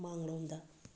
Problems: background sounds at intervals